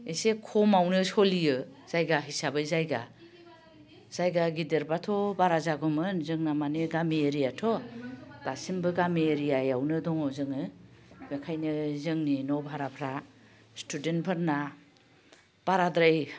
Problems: constant background noise